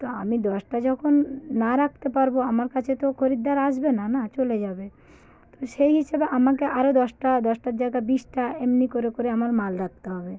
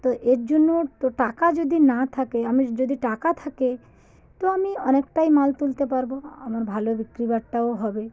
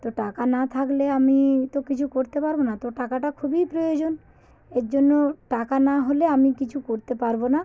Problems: background sounds at intervals